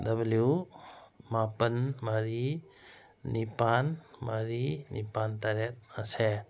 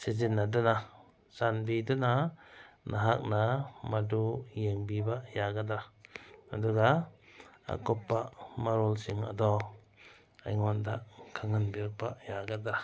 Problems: background sounds at intervals